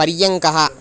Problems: constant background noise